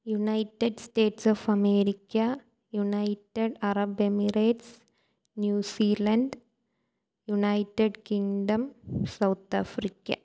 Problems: none marked